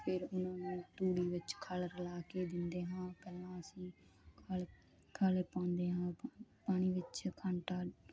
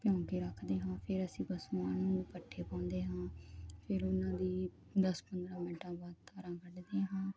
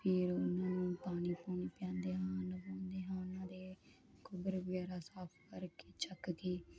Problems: none marked